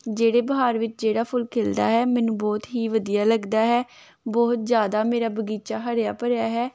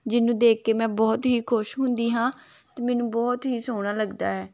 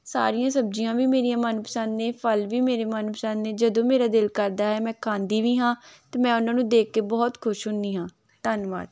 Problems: none marked